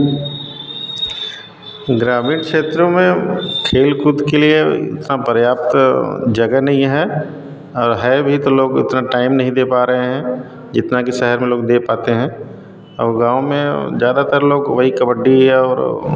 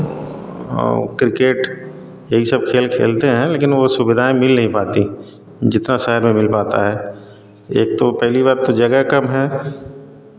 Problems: background sounds at intervals